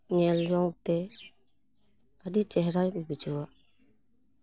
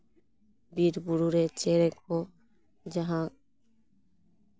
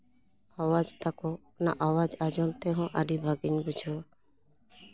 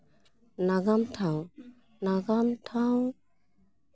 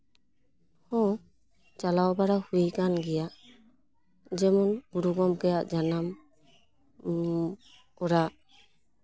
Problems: none marked